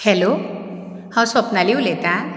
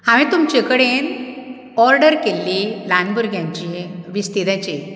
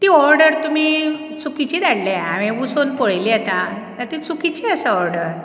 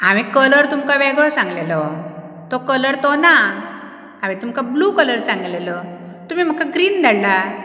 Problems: none marked